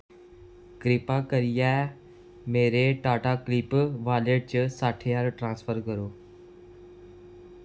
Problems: constant background noise